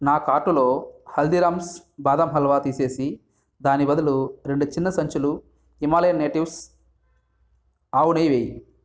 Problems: background sounds at intervals